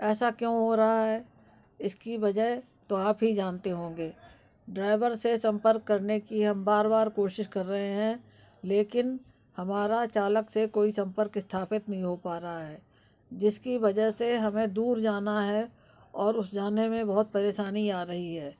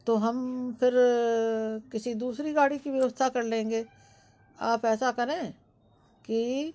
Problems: constant background noise